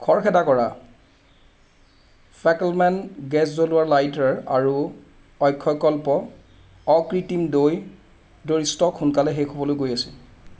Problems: constant background noise